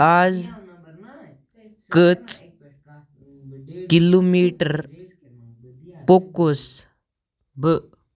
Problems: background sounds at intervals, background conversations at intervals